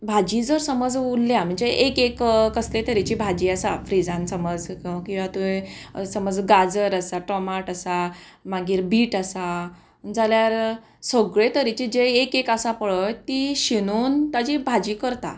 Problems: none marked